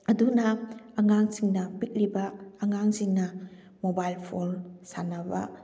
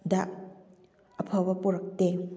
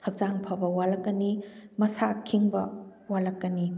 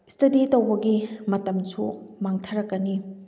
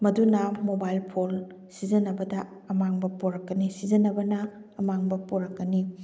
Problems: background sounds at intervals